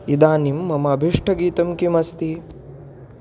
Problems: constant background noise